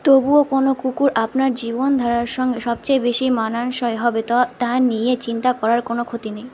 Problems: constant background noise